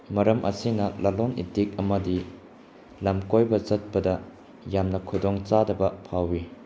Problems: background sounds at intervals